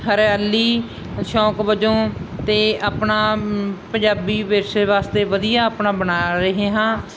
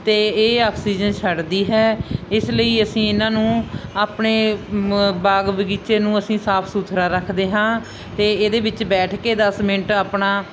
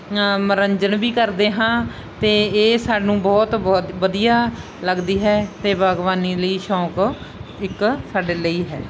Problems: none marked